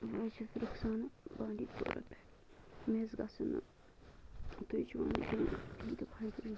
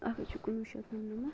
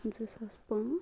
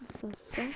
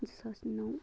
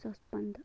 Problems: constant background noise, low volume